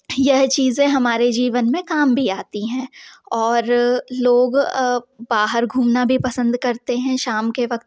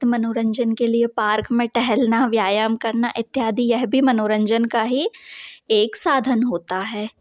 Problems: background sounds at intervals